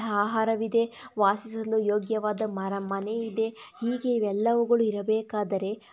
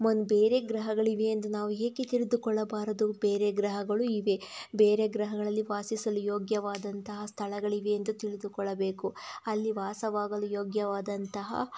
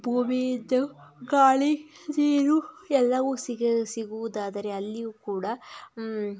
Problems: background sounds at intervals